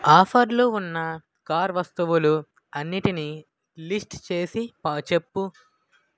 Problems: none marked